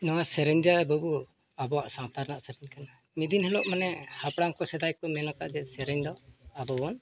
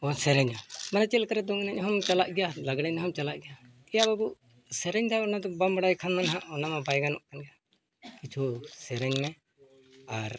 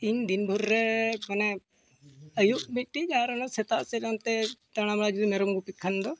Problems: none marked